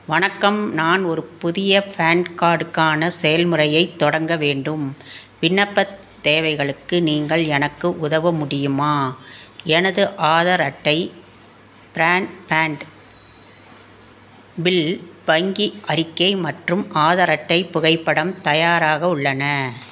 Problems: constant background noise